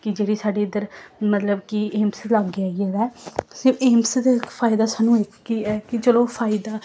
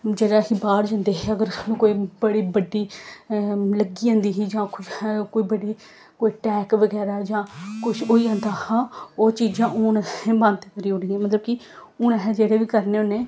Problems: none marked